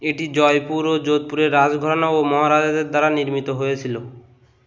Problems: constant background noise